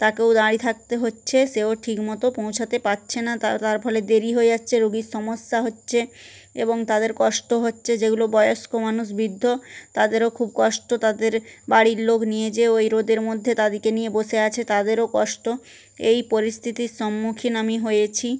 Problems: none marked